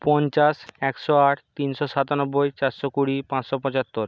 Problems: constant background noise